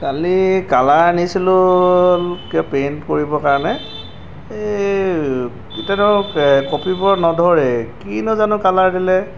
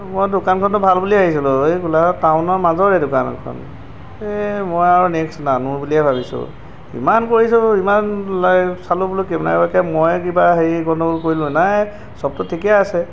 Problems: background sounds at intervals